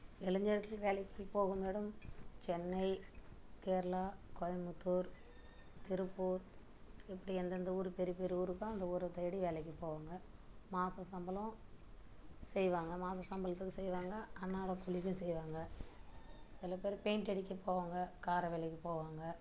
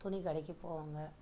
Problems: background sounds at intervals, low volume